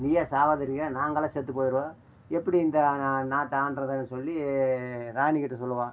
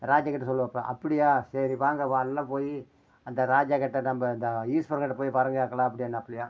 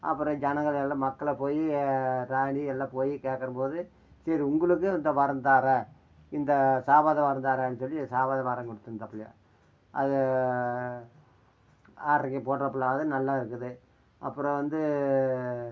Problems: none marked